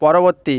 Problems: none marked